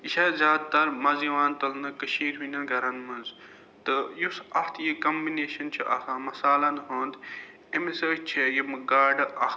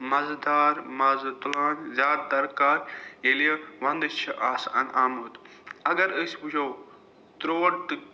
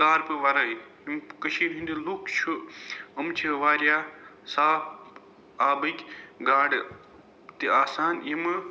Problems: background sounds at intervals